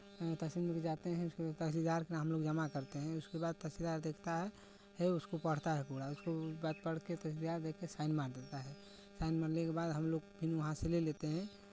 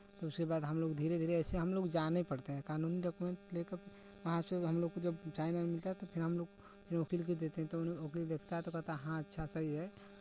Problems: background sounds at intervals